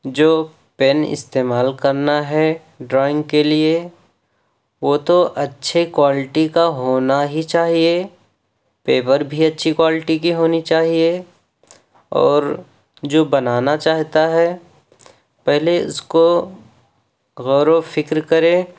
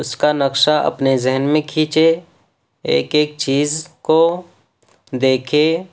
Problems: none marked